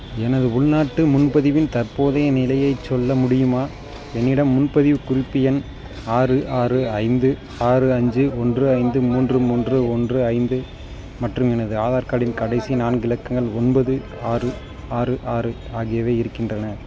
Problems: background conversations at intervals